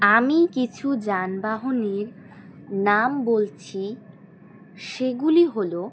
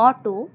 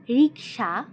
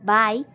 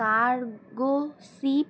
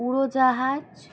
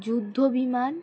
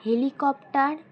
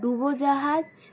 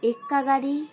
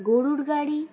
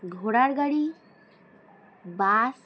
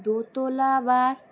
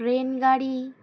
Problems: constant background noise, background conversations at intervals